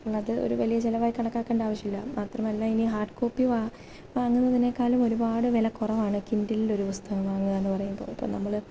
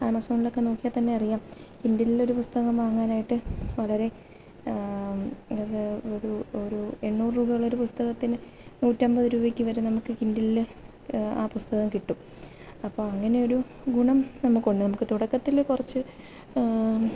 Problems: none marked